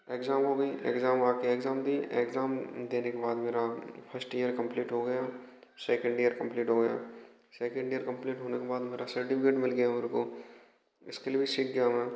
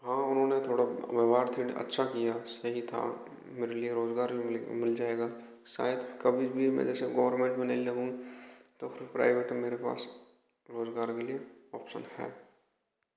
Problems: none marked